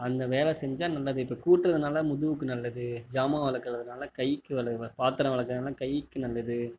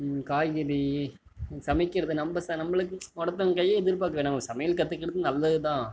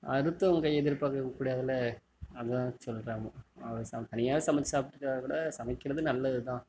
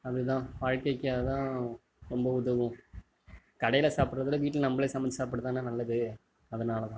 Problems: none marked